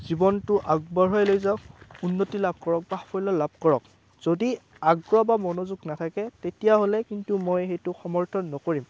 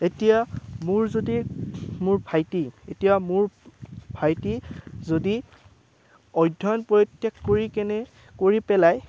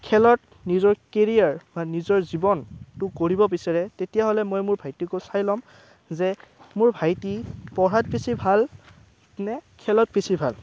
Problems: constant background noise